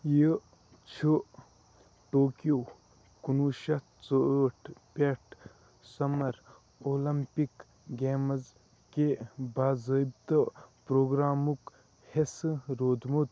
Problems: constant background noise